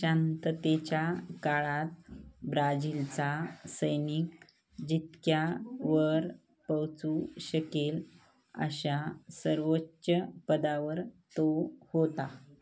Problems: none marked